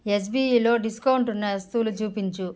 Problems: none marked